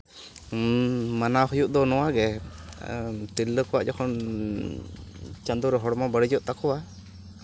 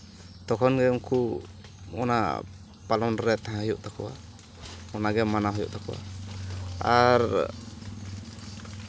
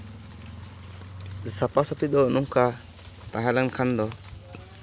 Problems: none marked